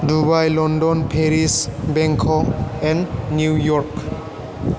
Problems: constant background noise